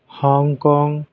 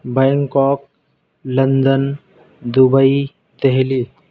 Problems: background sounds at intervals